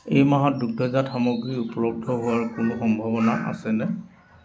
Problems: constant background noise, echo